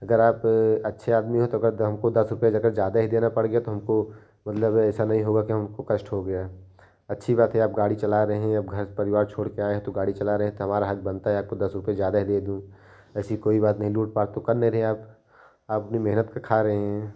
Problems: none marked